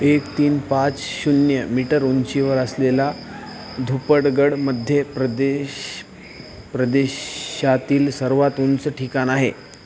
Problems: none marked